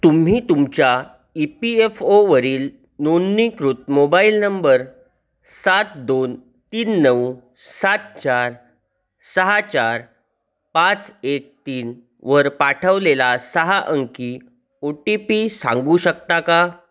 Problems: none marked